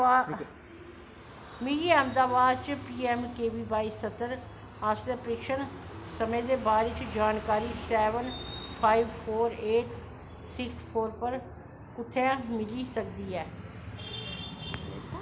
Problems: constant background noise